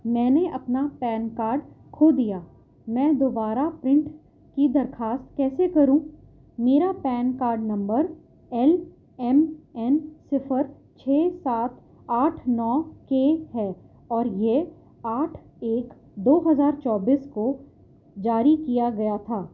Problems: low volume